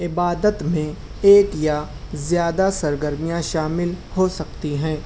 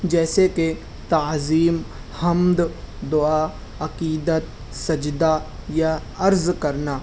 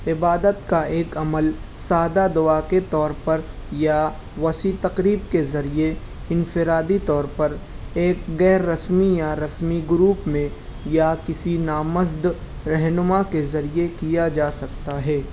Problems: none marked